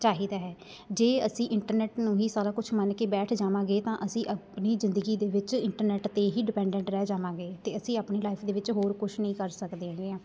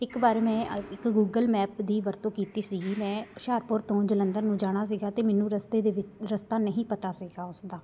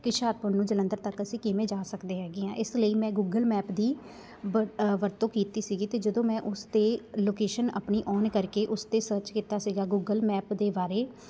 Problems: constant background noise, background conversations at intervals